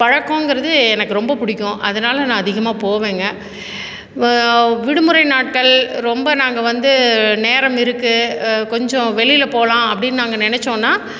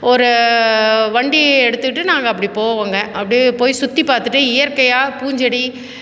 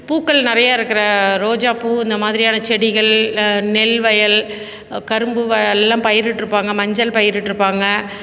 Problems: none marked